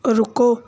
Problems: background sounds at intervals